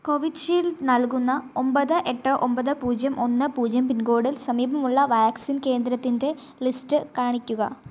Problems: none marked